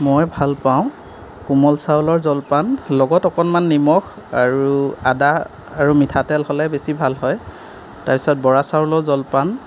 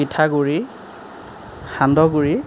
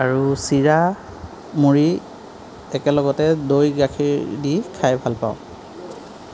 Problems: none marked